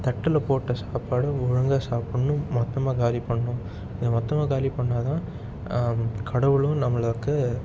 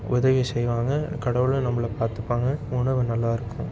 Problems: constant background noise